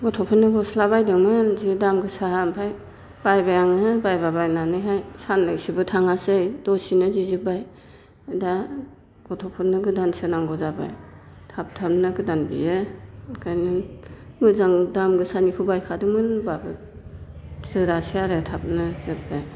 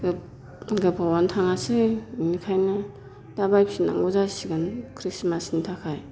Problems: constant background noise